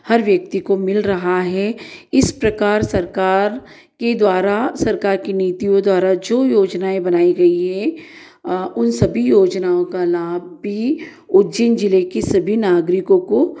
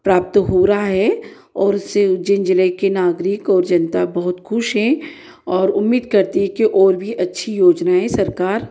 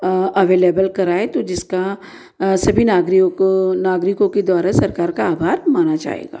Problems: none marked